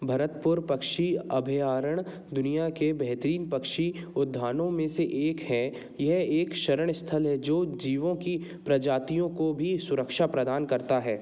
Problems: none marked